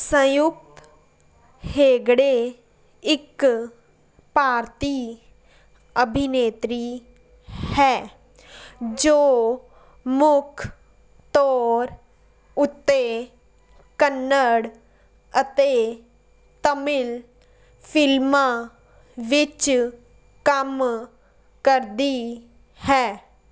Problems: background sounds at intervals